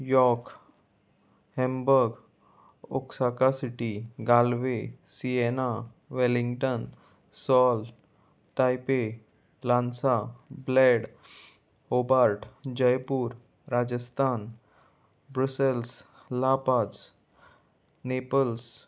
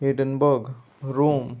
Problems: none marked